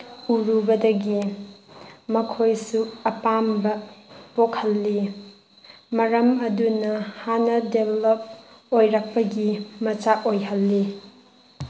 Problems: background sounds at intervals